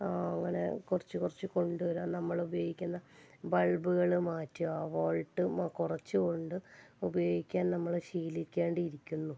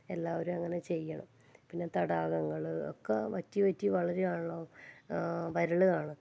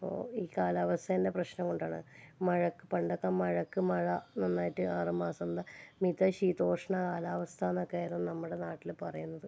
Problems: low volume